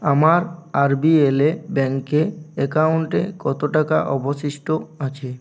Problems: none marked